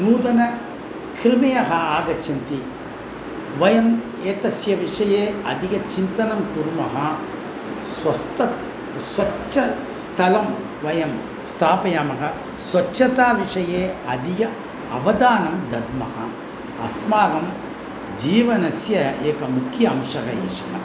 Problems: none marked